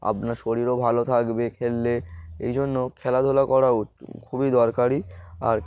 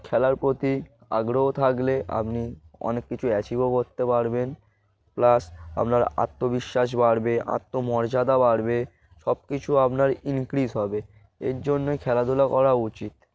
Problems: none marked